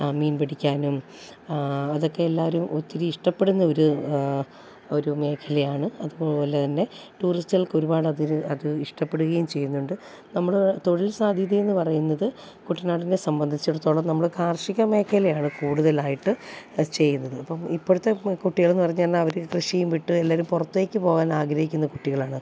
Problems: none marked